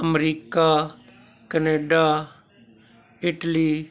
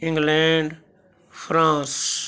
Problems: none marked